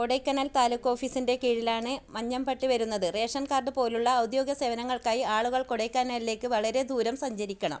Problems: none marked